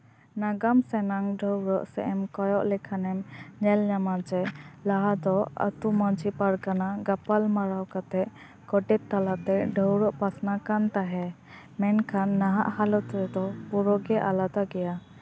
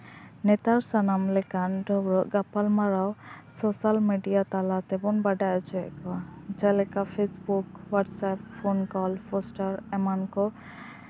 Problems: constant background noise, background conversations at intervals